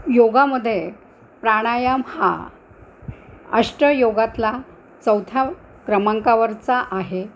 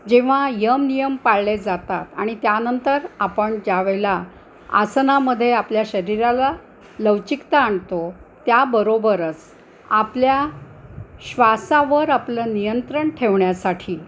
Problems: constant background noise, background conversations at intervals